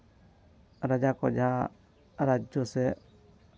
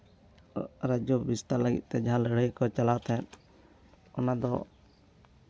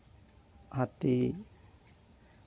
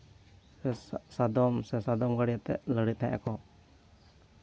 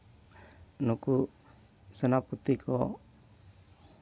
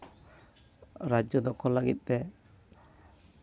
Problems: background sounds at intervals